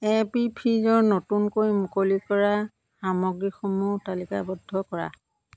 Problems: none marked